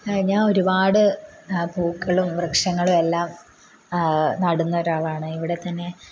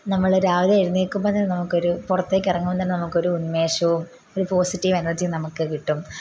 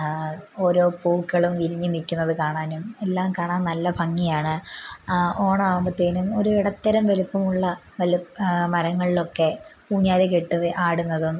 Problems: constant background noise